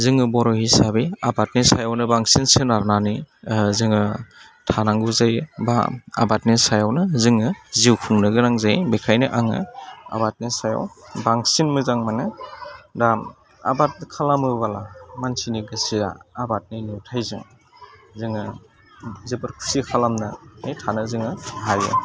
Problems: constant background noise